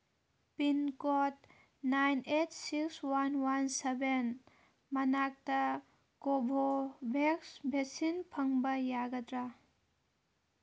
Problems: background sounds at intervals